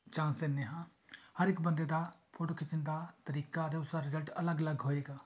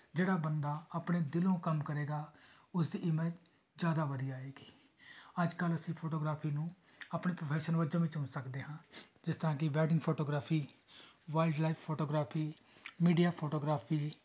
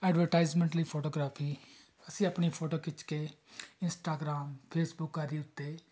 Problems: background sounds at intervals